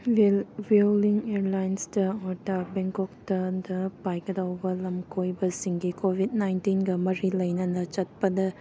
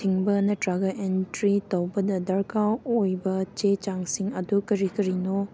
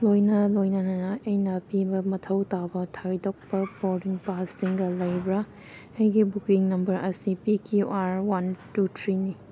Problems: background sounds at intervals